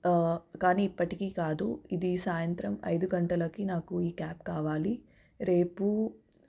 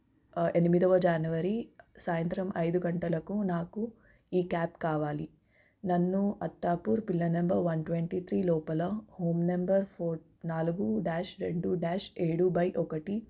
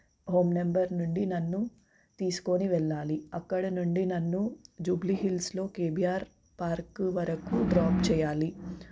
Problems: background sounds at intervals